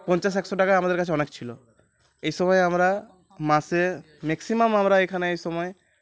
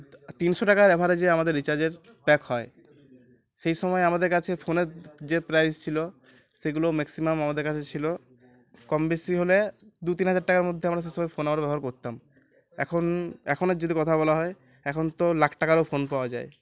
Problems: continuous background conversations